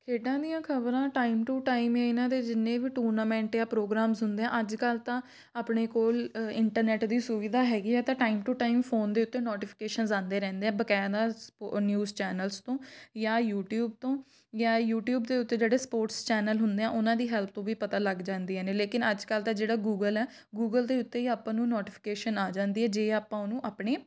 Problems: background sounds at intervals